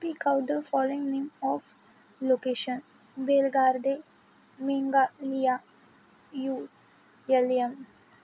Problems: constant background noise